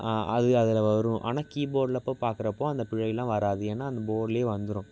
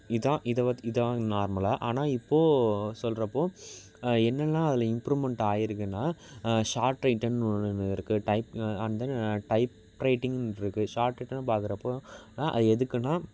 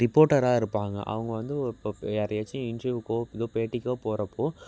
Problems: background sounds at intervals